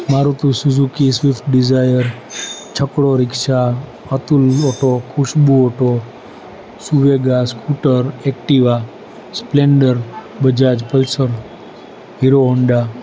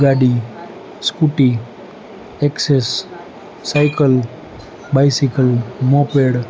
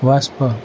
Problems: constant background noise, continuous background conversations